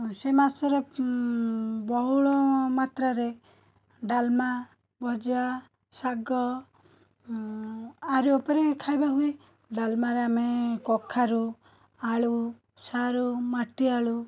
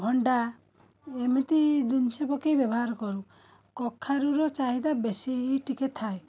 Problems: continuous background conversations